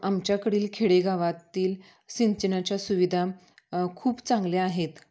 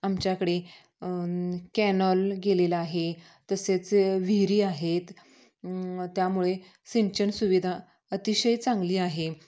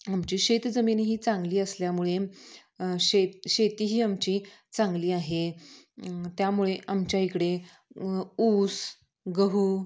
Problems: background sounds at intervals